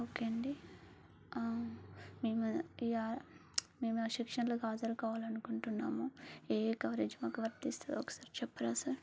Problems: low volume